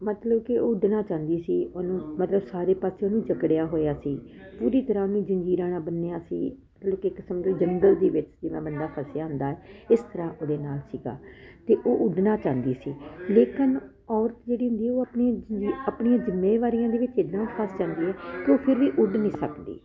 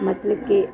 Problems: none marked